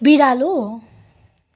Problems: none marked